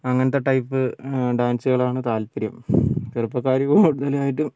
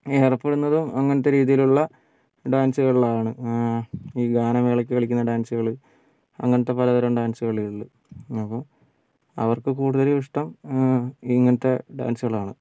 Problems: background sounds at intervals, low volume